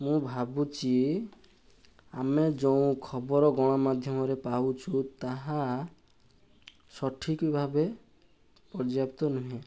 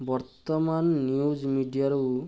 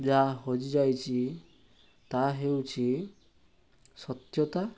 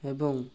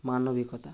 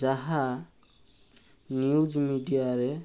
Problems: none marked